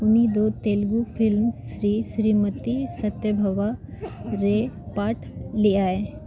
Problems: none marked